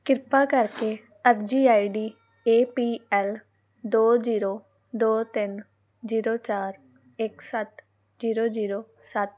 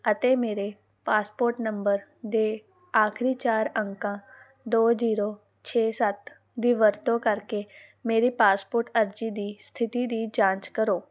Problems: background sounds at intervals